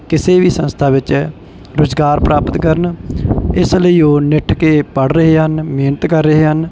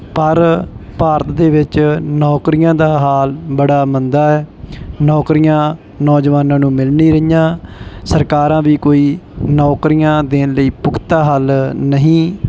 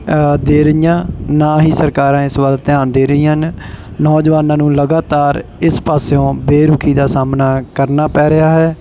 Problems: background sounds at intervals